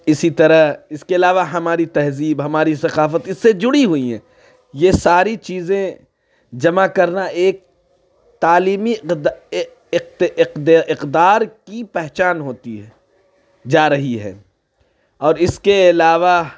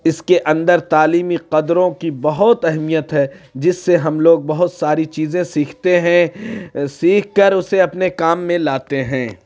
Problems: background sounds at intervals